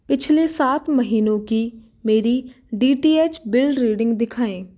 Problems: none marked